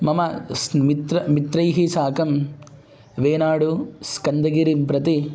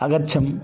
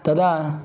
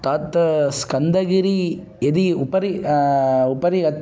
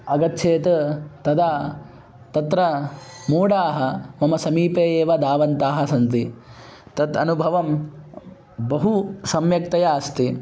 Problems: background conversations at intervals